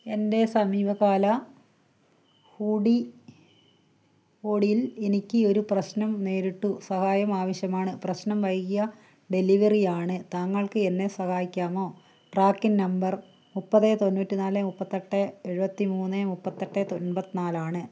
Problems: none marked